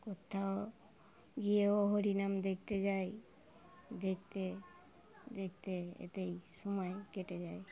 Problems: background sounds at intervals